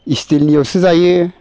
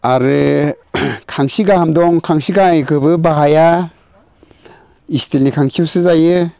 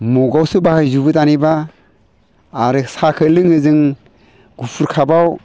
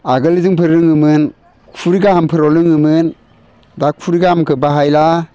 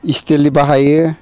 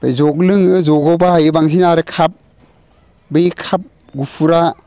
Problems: constant background noise